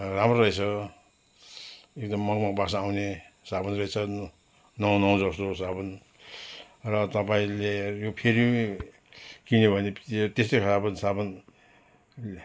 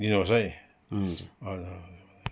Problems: constant background noise